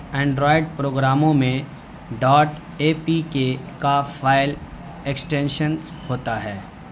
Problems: constant background noise